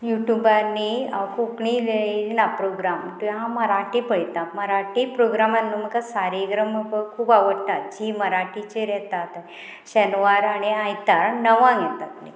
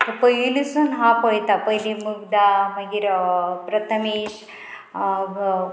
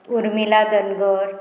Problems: constant background noise